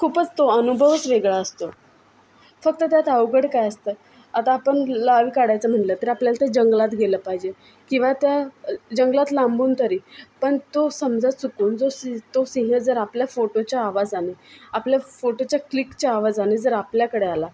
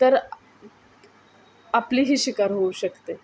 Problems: constant background noise, continuous background conversations